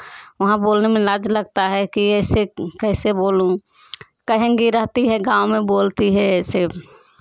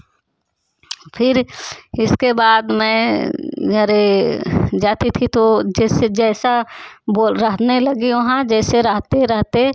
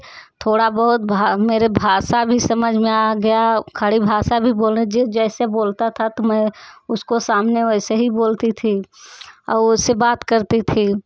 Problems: constant background noise, background conversations at intervals